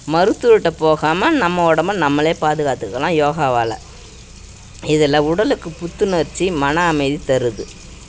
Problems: background sounds at intervals